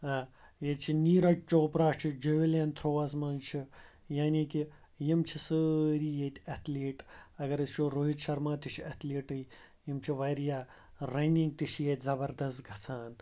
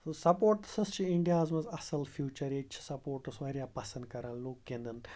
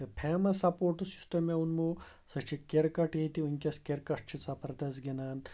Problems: background sounds at intervals